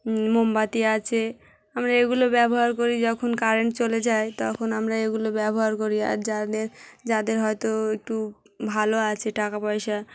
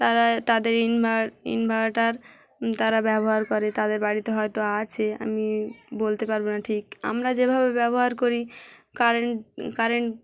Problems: none marked